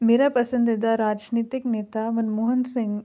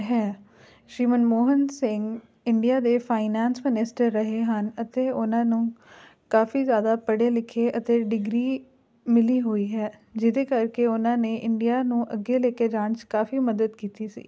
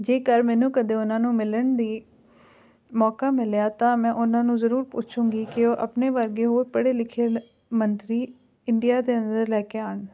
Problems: background conversations at intervals